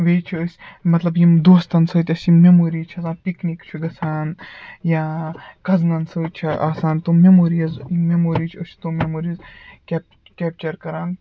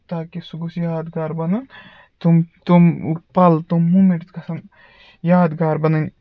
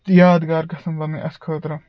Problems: background sounds at intervals